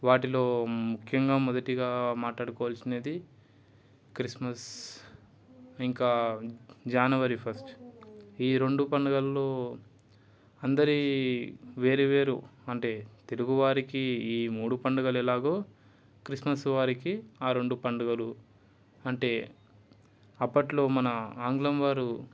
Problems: none marked